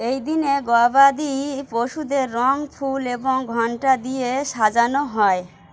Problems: constant background noise